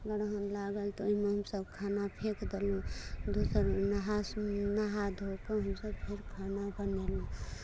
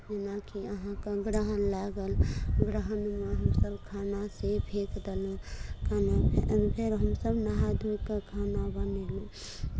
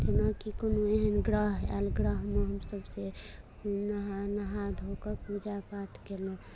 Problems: low volume